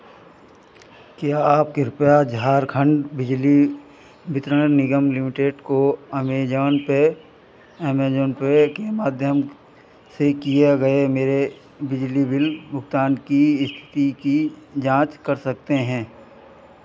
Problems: none marked